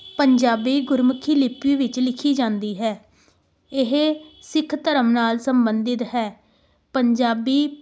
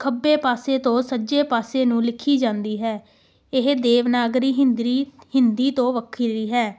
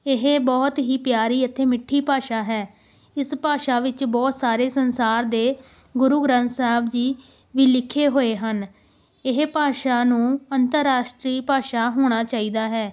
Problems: background sounds at intervals